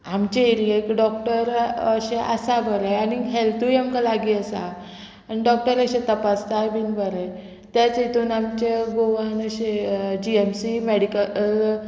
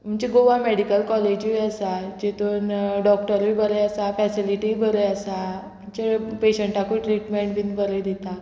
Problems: none marked